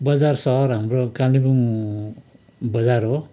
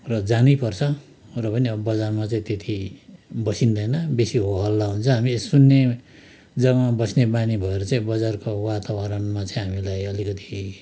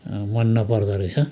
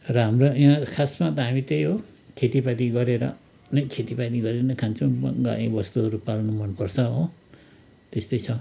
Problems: constant background noise